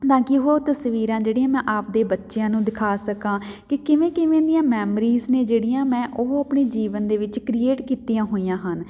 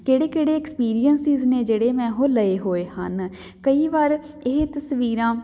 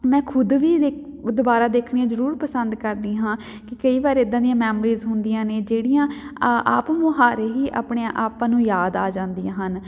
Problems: none marked